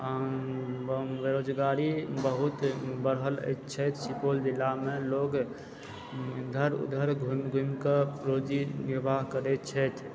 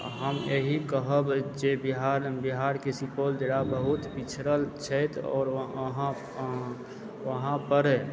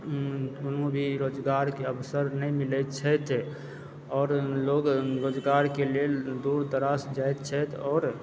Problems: background sounds at intervals, low volume